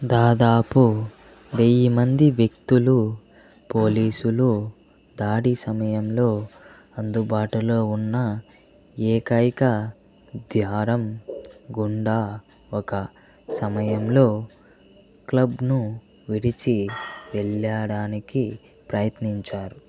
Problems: background sounds at intervals